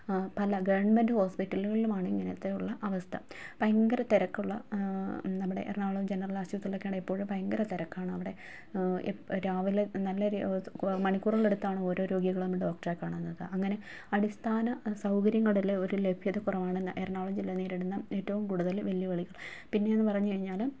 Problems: low volume